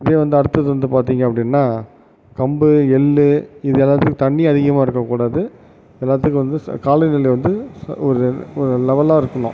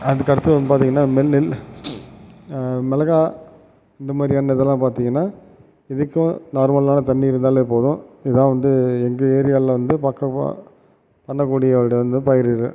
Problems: background sounds at intervals